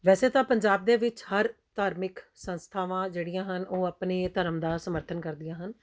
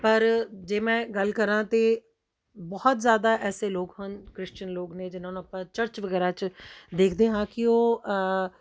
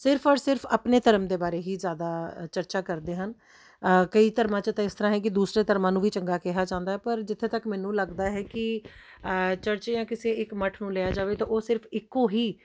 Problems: background sounds at intervals